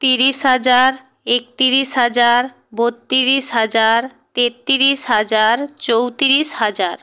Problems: none marked